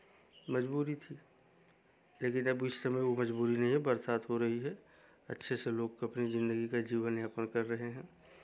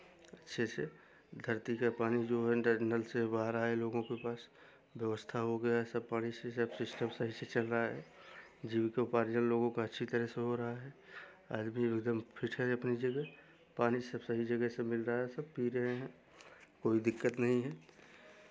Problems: none marked